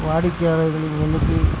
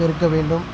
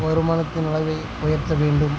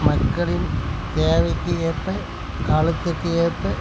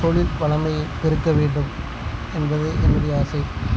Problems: background sounds at intervals